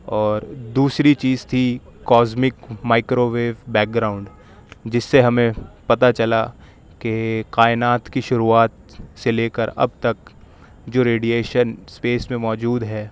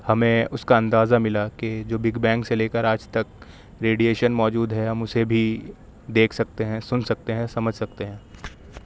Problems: none marked